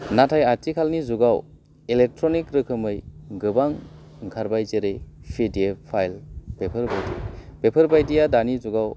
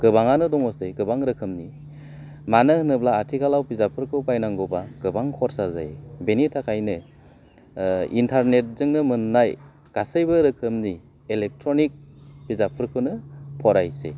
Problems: none marked